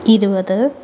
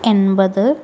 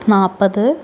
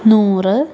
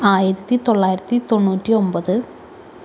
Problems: constant background noise